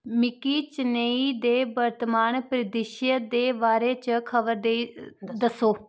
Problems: none marked